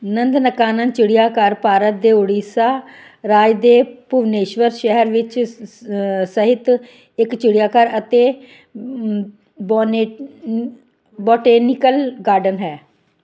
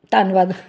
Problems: none marked